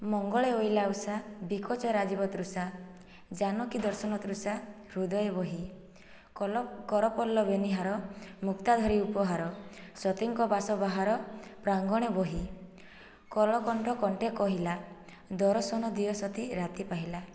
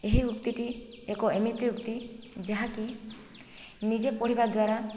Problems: background sounds at intervals, low volume